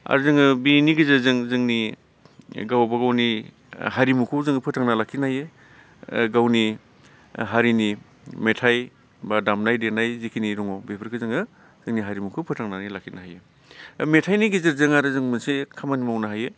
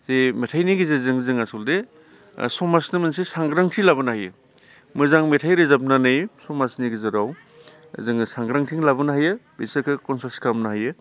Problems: constant background noise